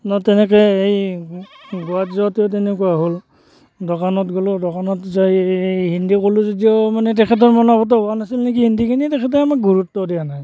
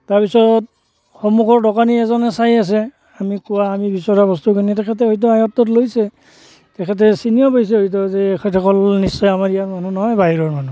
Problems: constant background noise